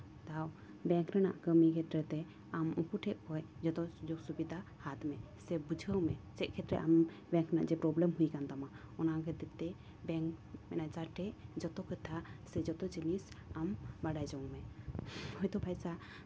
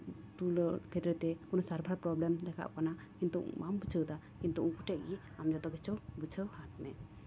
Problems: background sounds at intervals